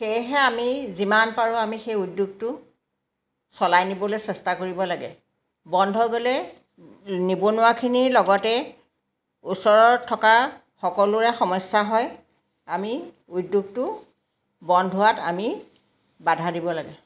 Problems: background sounds at intervals